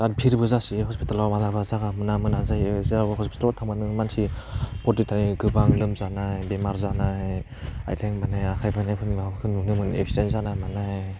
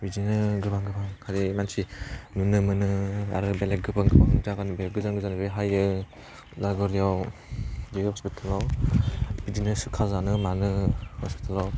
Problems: low volume